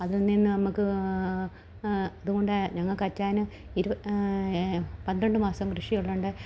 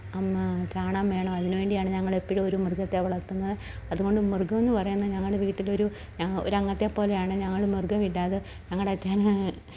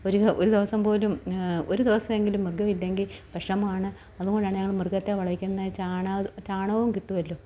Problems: low volume